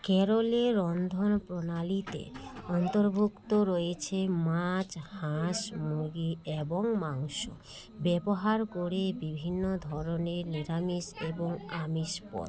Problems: continuous background conversations